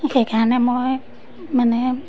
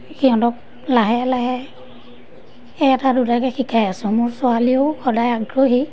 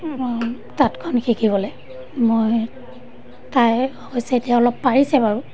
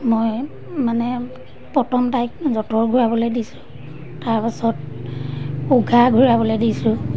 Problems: constant background noise